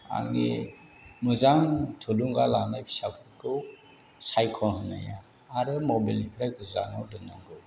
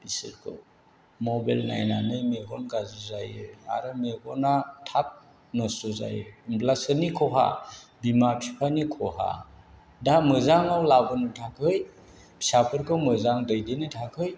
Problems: none marked